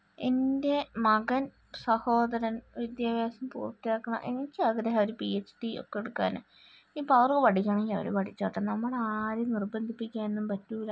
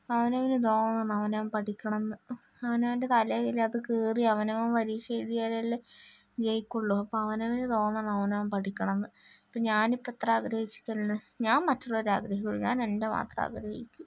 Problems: none marked